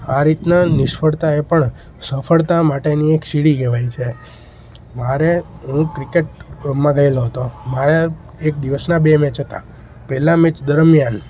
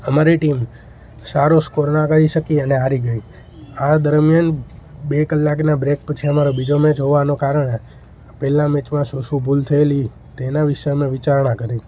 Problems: constant background noise